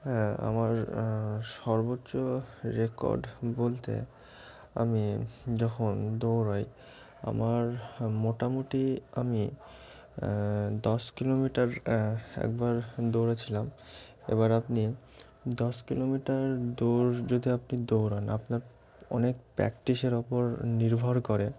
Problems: constant background noise